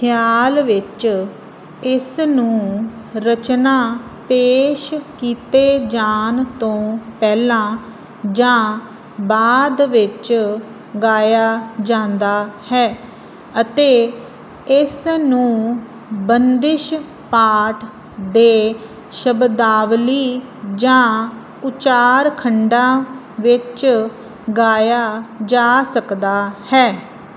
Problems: none marked